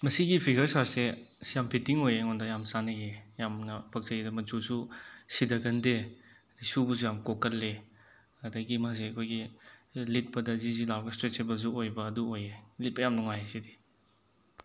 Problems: none marked